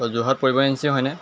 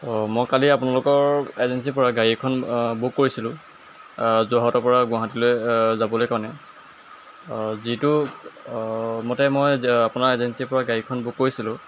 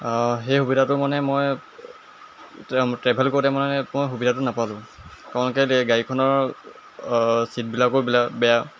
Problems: constant background noise